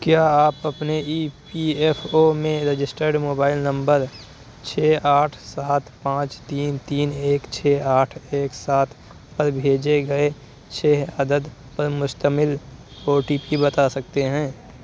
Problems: none marked